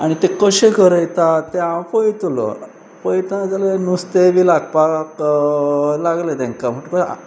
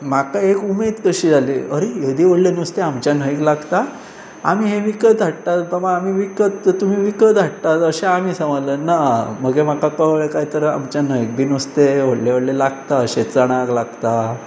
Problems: constant background noise